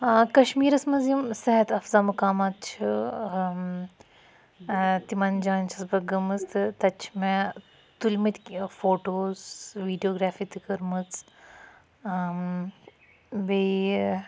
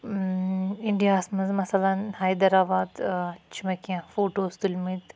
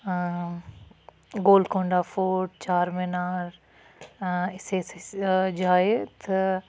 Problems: none marked